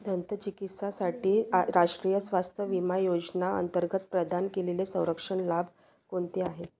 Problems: constant background noise